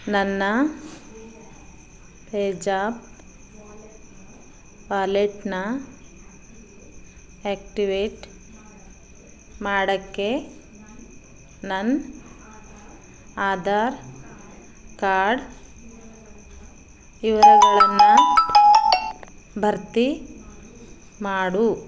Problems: background sounds at intervals